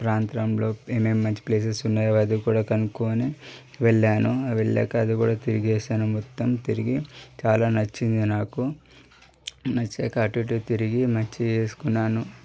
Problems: none marked